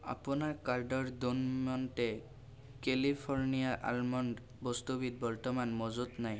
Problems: constant background noise